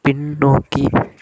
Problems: constant background noise